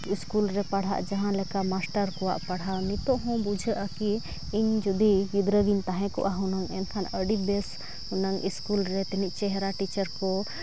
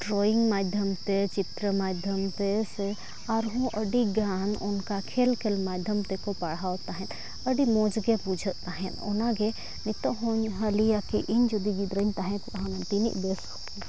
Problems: constant background noise